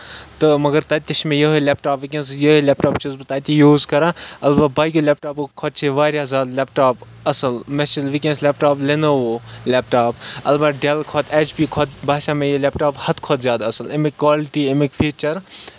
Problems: none marked